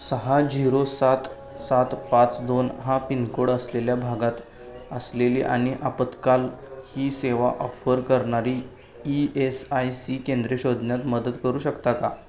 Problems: none marked